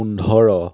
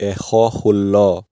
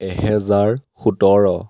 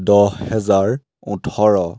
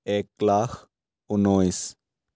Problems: background sounds at intervals